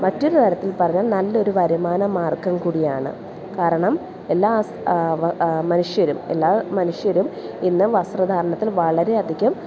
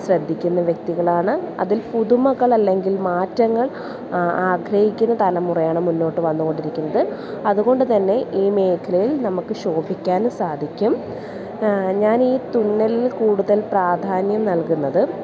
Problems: none marked